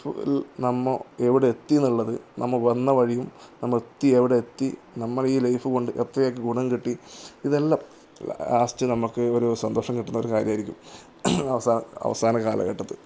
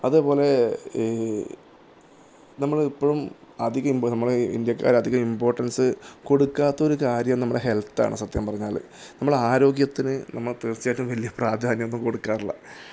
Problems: none marked